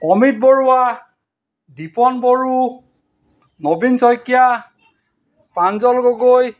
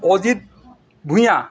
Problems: none marked